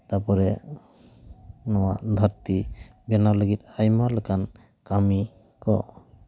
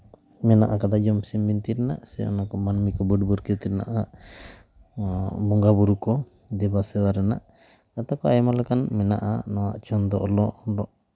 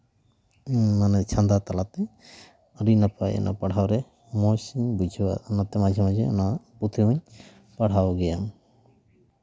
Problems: background sounds at intervals